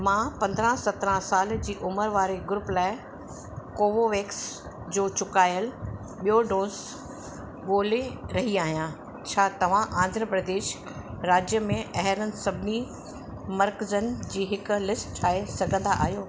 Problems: constant background noise, echo